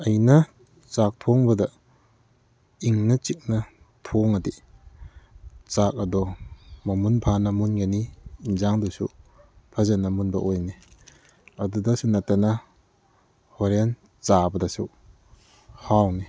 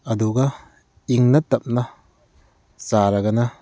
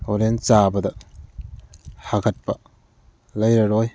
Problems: background sounds at intervals